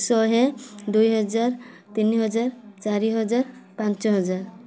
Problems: constant background noise